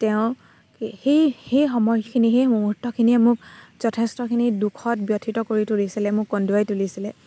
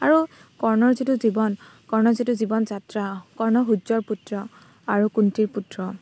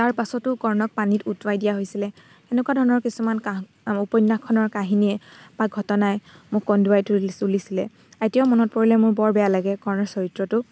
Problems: constant background noise